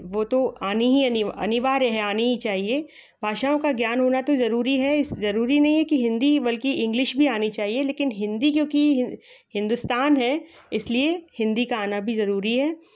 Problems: background sounds at intervals, background conversations at intervals